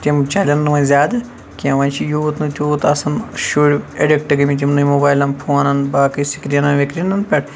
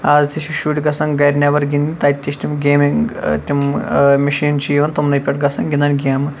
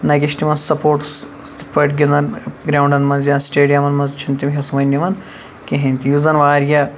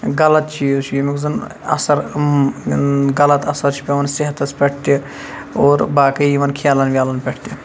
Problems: constant background noise